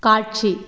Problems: constant background noise